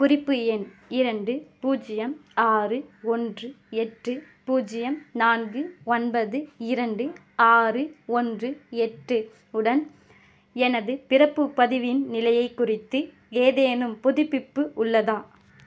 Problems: none marked